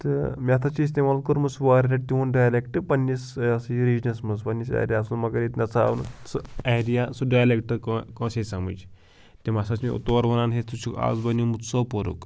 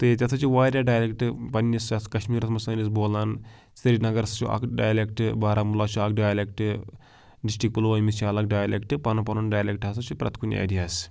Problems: background sounds at intervals